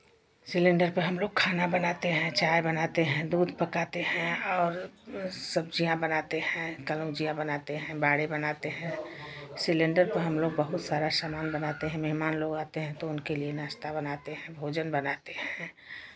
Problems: none marked